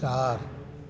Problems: constant background noise, echo